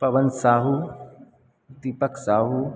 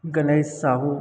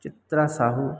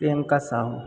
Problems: background sounds at intervals